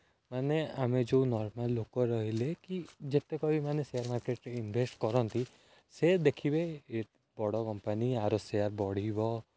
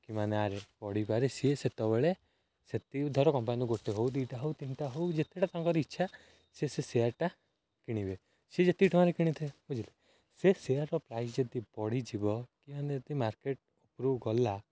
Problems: none marked